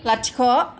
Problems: none marked